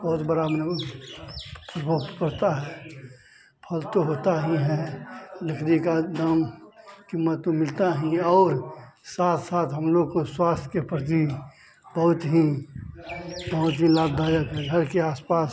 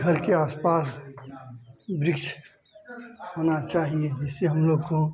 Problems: none marked